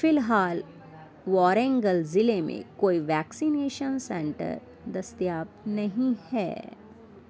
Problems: none marked